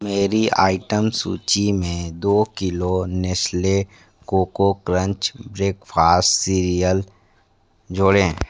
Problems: background sounds at intervals